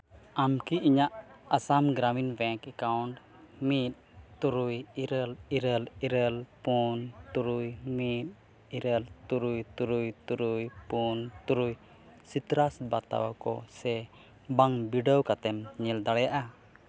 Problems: background sounds at intervals, background conversations at intervals